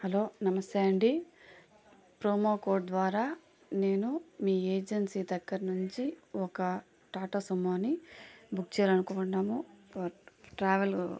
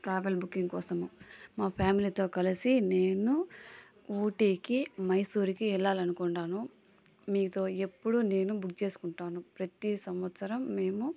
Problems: constant background noise